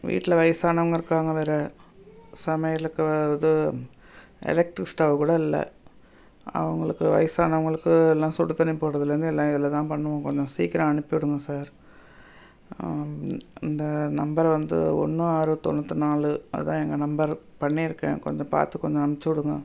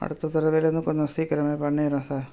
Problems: background sounds at intervals